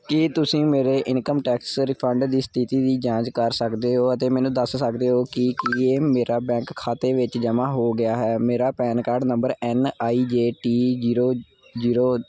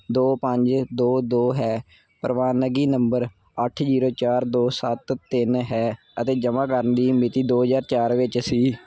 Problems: none marked